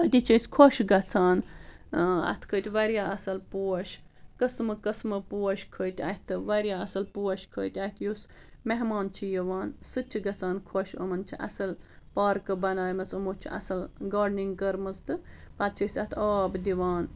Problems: none marked